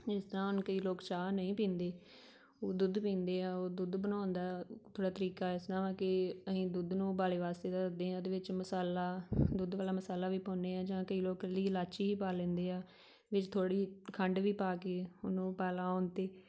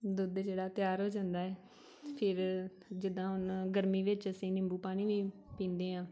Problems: background conversations at intervals